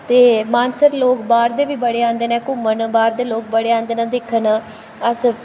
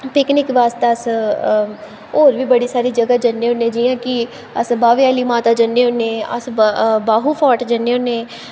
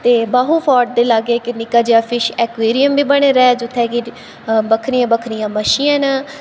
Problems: constant background noise, echo